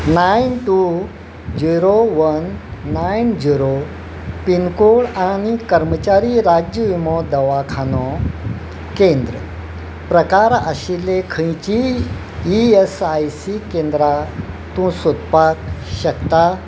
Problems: none marked